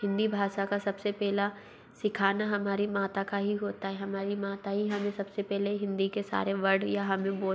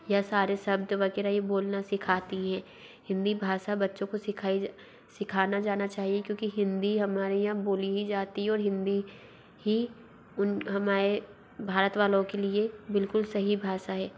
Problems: background sounds at intervals, low volume